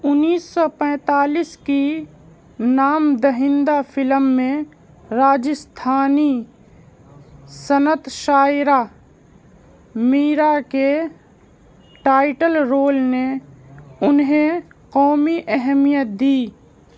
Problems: none marked